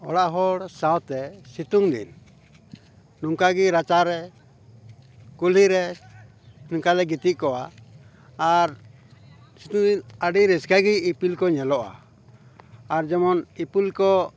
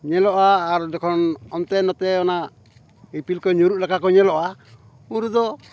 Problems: background conversations at intervals